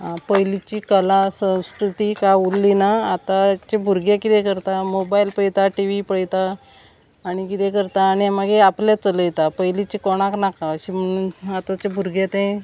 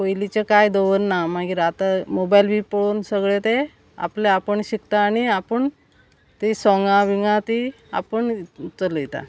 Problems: none marked